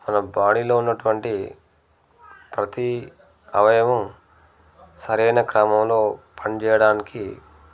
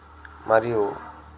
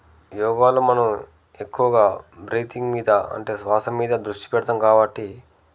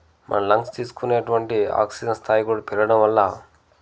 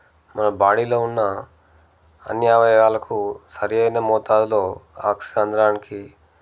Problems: none marked